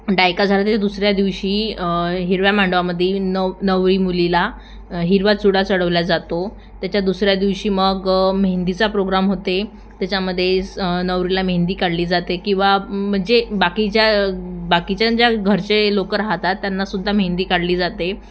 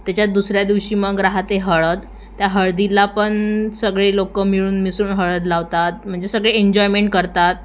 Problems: constant background noise